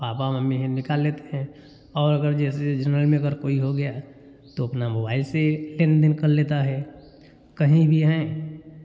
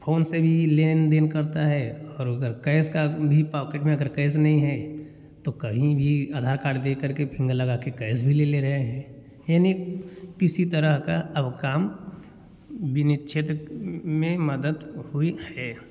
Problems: none marked